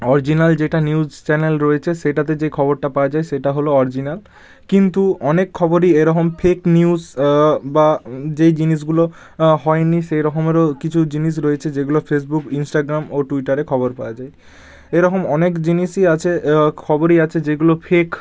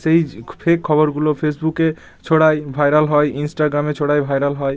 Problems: none marked